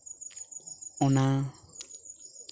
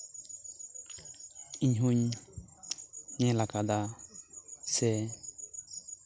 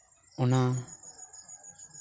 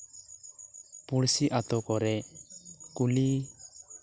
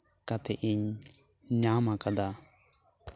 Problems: constant background noise